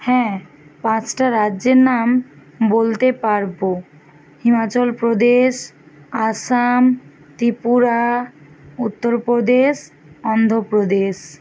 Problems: constant background noise